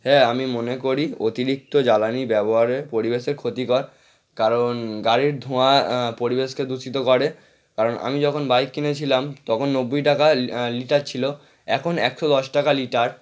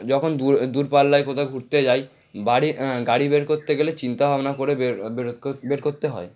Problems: background sounds at intervals